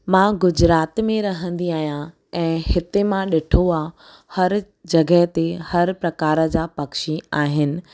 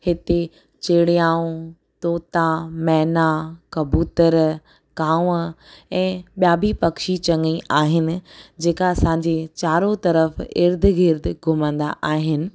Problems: none marked